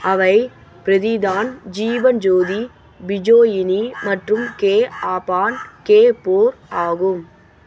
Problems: constant background noise